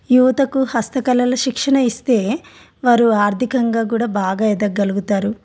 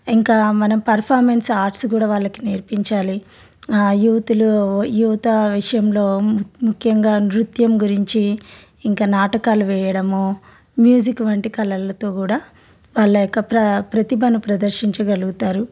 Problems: none marked